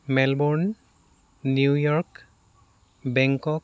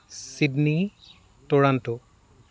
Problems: constant background noise